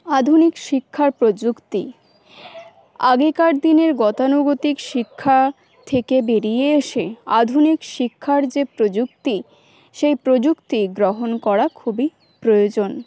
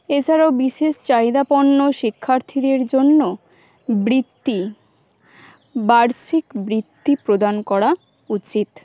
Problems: constant background noise